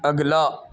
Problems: constant background noise, low volume